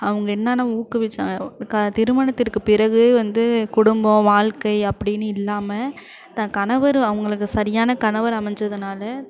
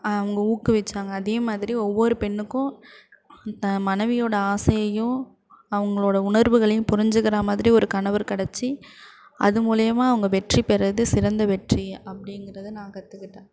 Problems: constant background noise